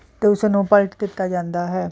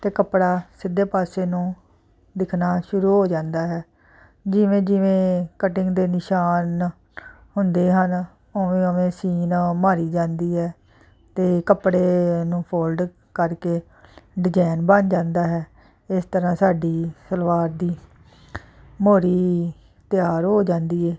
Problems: constant background noise